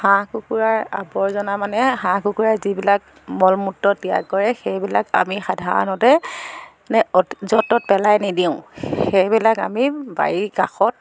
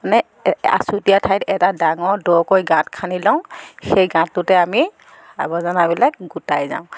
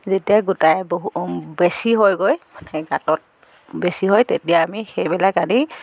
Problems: none marked